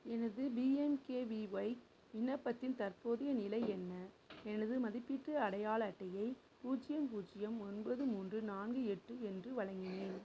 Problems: background sounds at intervals, low volume